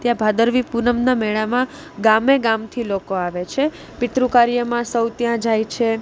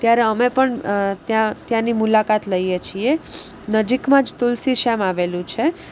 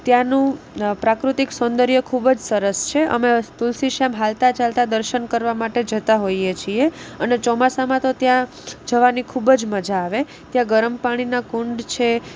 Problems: constant background noise